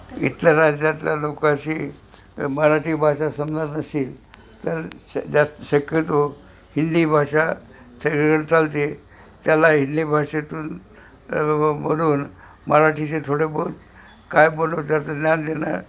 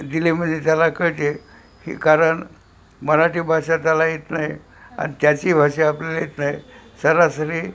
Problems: constant background noise, background conversations at intervals